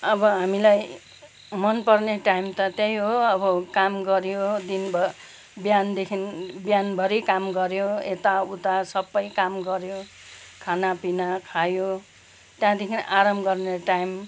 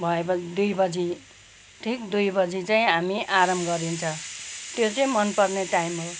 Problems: background sounds at intervals